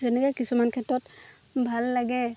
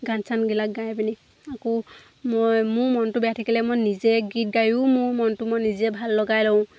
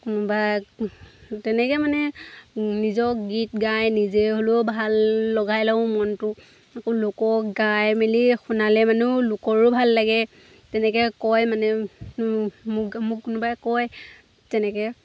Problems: constant background noise